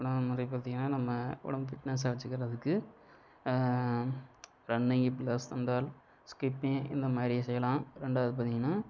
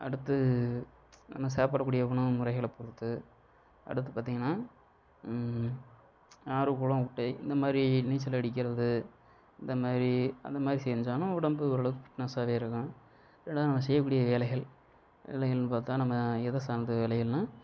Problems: none marked